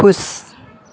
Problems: constant background noise